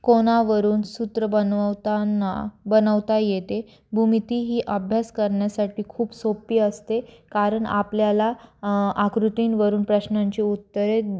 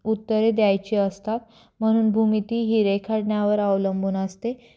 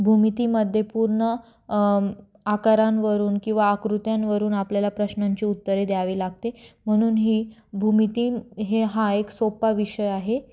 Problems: constant background noise